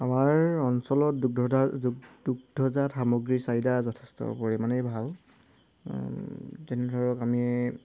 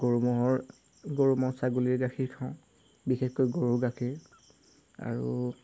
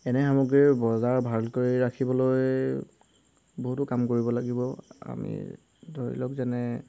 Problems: background sounds at intervals